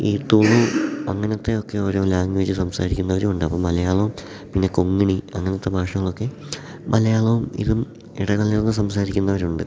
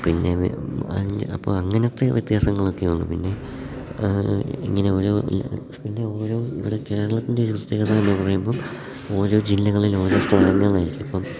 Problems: background sounds at intervals, low volume